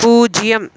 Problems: constant background noise